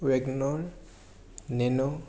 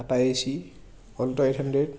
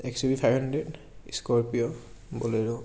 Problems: none marked